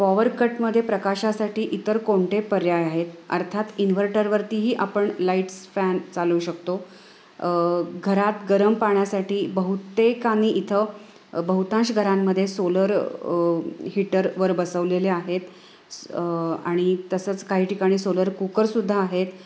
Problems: constant background noise